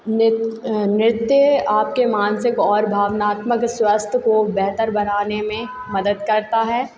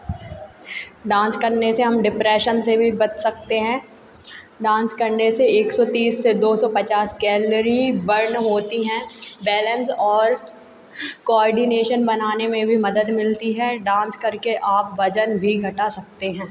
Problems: constant background noise